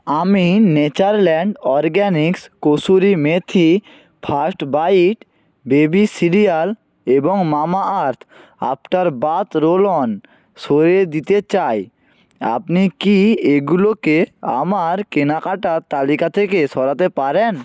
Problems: background sounds at intervals